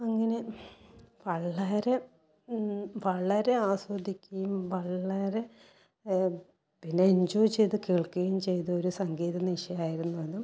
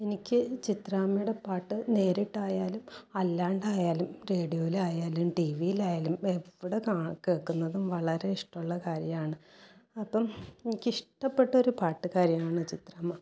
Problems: low volume